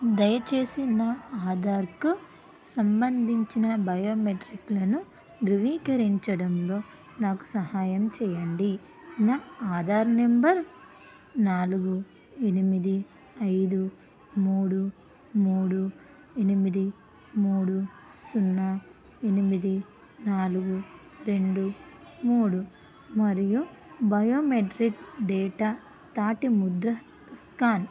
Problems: constant background noise